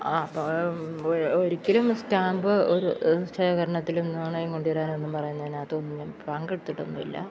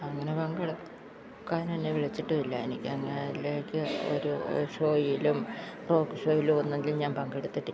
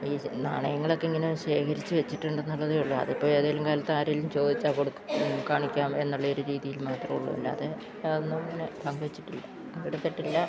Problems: constant background noise, low volume